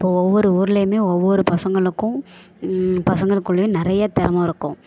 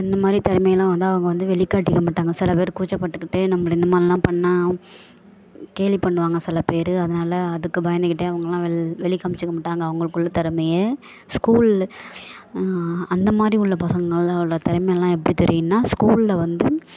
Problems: background sounds at intervals